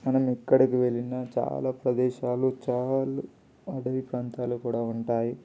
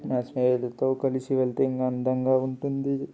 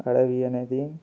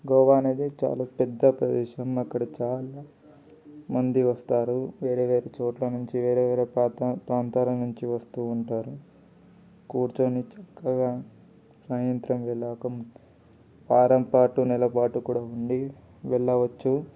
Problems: constant background noise, background conversations at intervals